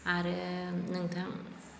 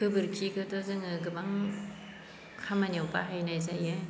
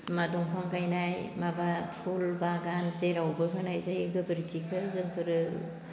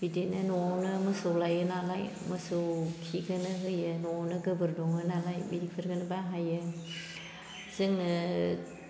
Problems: constant background noise